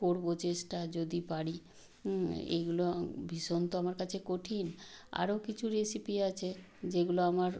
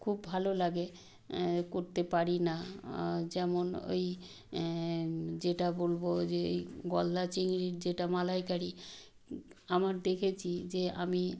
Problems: none marked